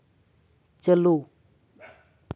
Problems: background sounds at intervals, background conversations at intervals